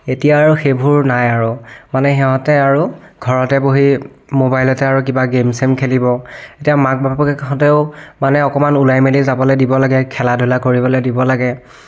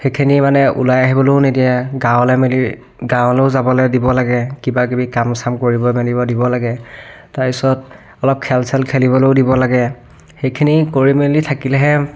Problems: none marked